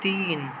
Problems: constant background noise